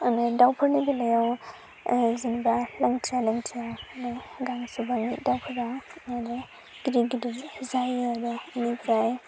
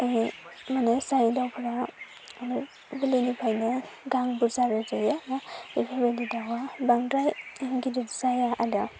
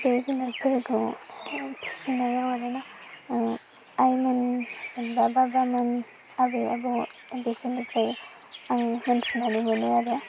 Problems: constant background noise